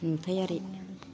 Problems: low volume